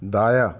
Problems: none marked